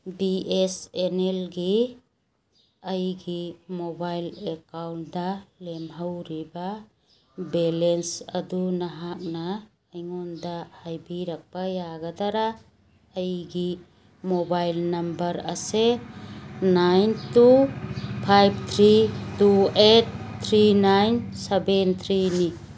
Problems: background sounds at intervals